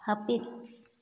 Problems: constant background noise